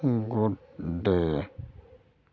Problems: constant background noise, low volume